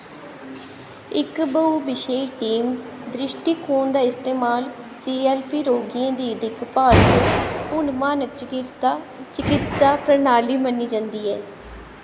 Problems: constant background noise, echo